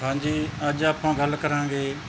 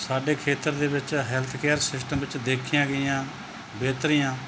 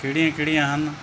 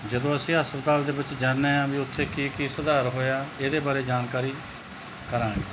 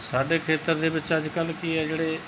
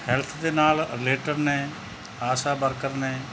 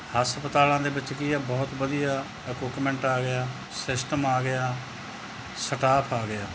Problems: constant background noise